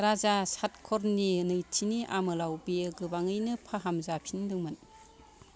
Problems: background sounds at intervals